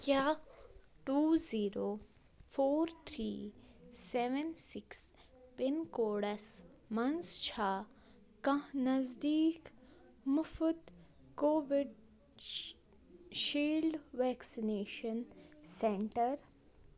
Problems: constant background noise